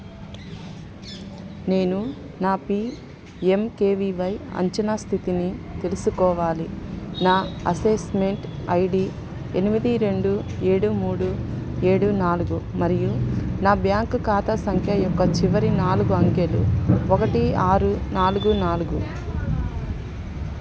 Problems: constant background noise, continuous background conversations